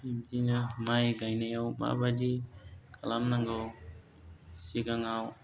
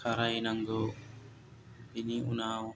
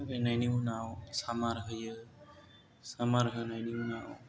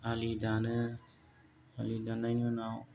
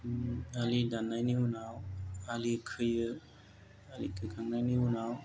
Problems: low volume